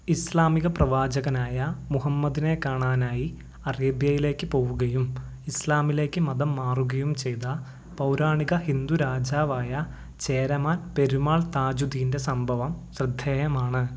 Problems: low volume